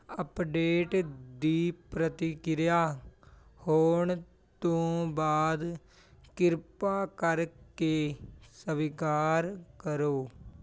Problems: continuous background conversations